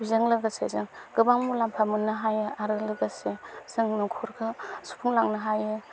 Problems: none marked